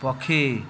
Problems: continuous background conversations